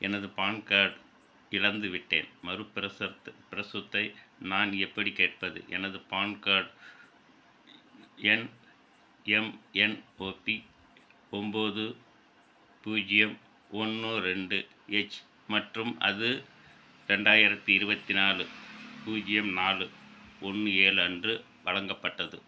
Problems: constant background noise